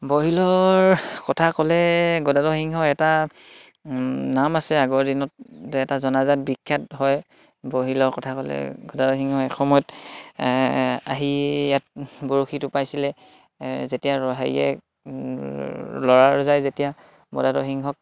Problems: background sounds at intervals